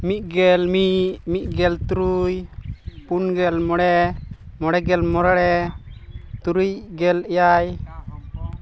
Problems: background sounds at intervals, continuous background conversations